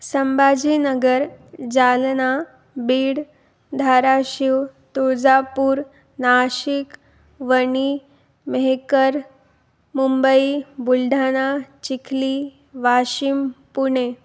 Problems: none marked